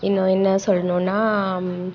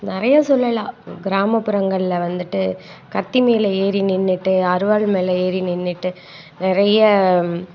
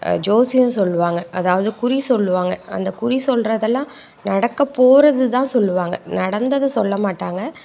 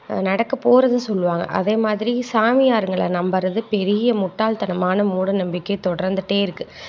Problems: constant background noise